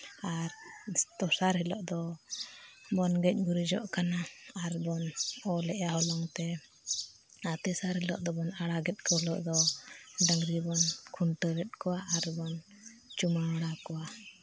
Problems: background sounds at intervals